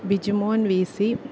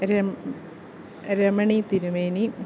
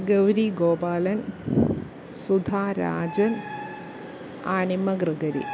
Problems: background sounds at intervals